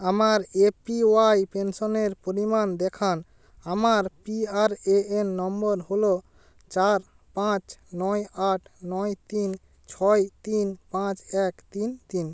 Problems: constant background noise